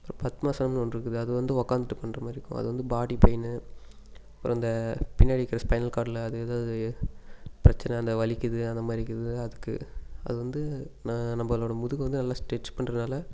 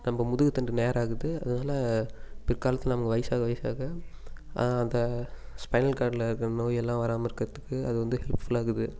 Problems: constant background noise